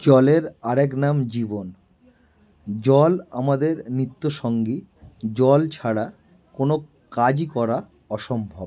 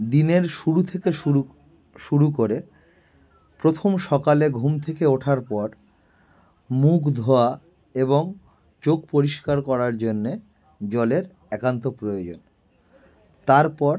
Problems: background sounds at intervals